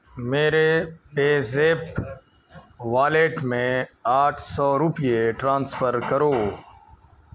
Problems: constant background noise, continuous background conversations